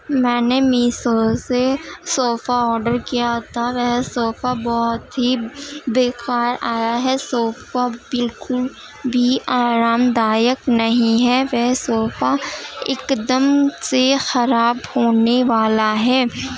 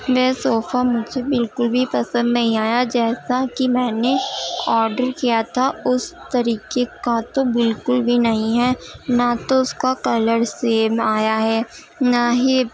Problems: constant background noise